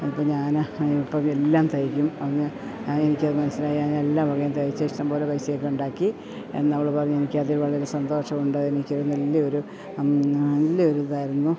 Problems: background sounds at intervals